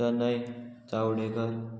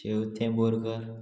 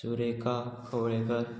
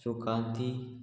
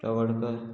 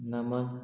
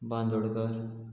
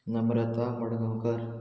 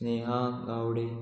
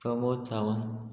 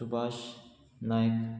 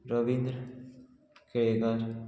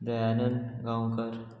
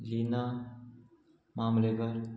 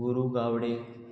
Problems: constant background noise, continuous background conversations